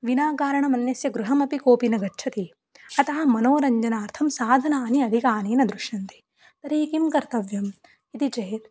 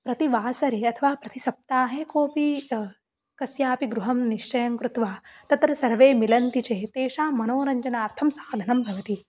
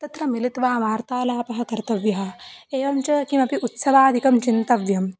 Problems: none marked